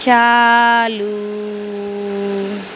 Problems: constant background noise